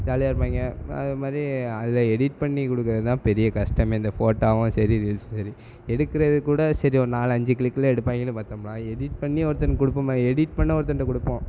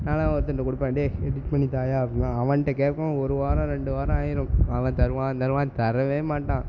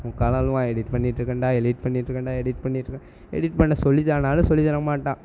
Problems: constant background noise